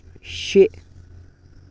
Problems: none marked